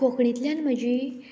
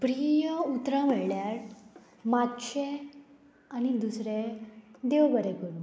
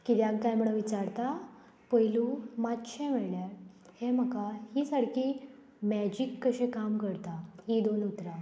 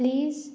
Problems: constant background noise, background conversations at intervals